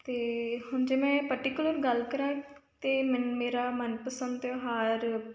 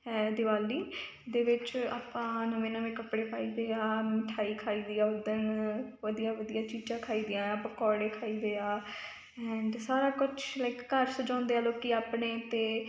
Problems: none marked